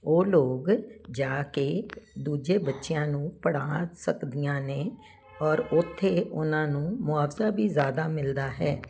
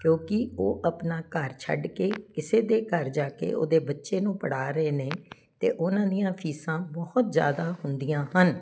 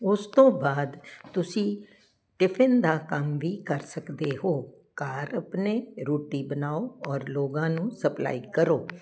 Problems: none marked